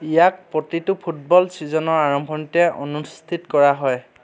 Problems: none marked